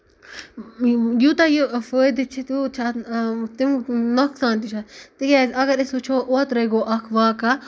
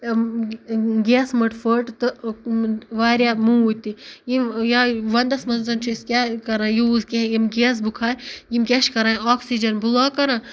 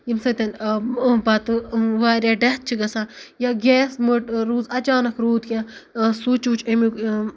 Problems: none marked